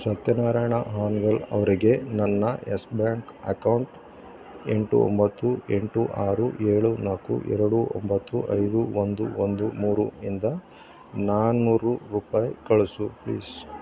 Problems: low volume